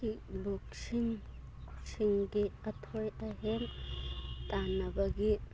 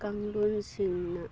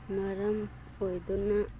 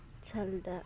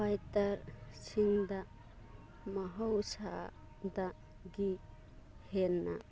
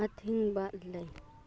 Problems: background sounds at intervals